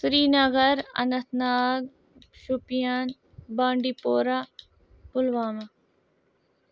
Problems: none marked